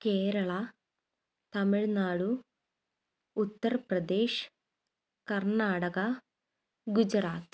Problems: none marked